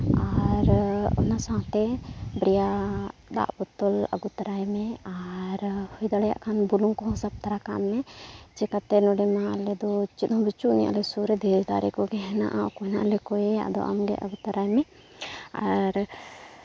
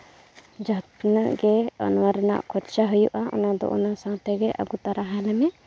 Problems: none marked